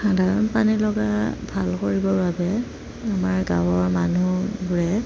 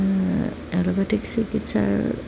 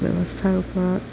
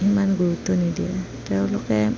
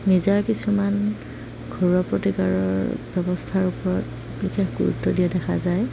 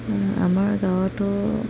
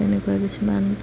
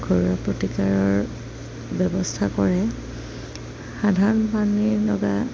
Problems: none marked